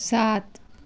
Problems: constant background noise